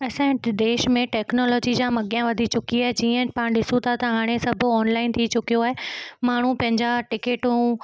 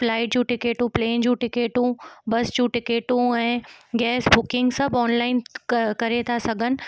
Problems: background sounds at intervals